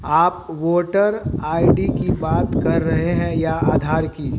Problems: none marked